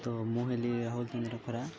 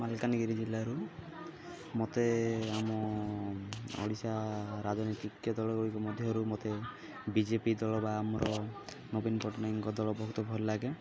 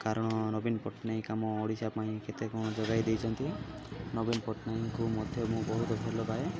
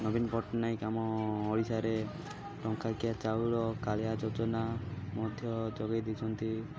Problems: constant background noise, continuous background conversations